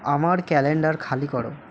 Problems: none marked